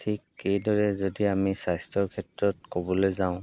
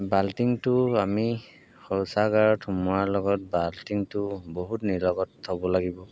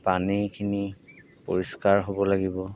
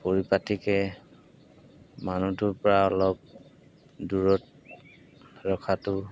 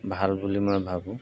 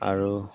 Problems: background sounds at intervals